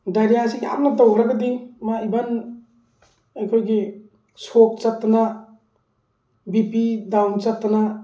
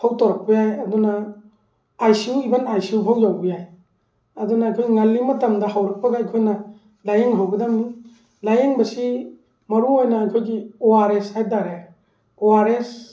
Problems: background sounds at intervals